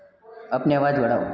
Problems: constant background noise, background conversations at intervals